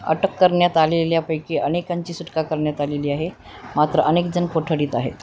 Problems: constant background noise